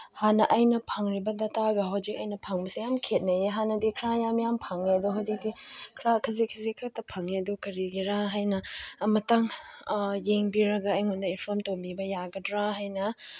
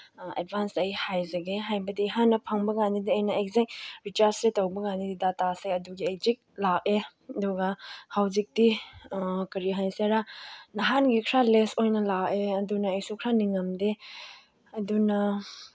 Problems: background sounds at intervals